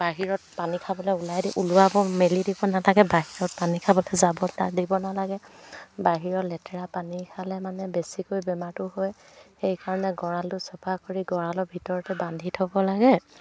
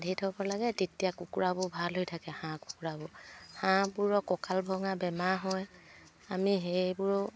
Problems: background conversations at intervals